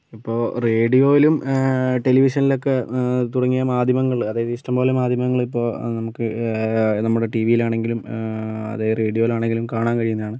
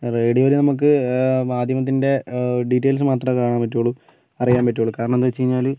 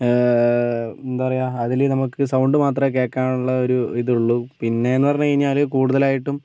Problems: none marked